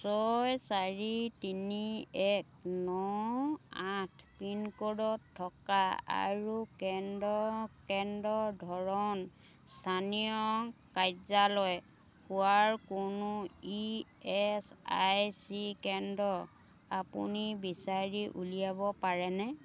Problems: constant background noise, background conversations at intervals